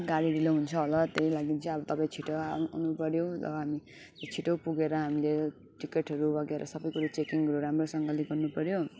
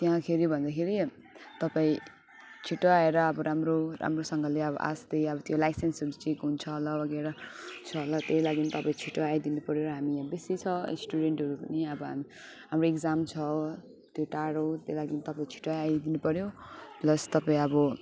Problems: background sounds at intervals